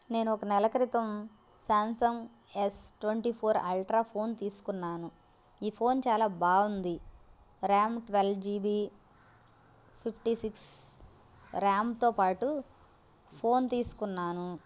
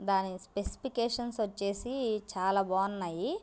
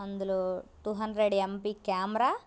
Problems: constant background noise